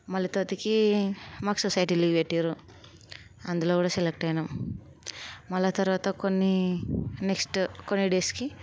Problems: none marked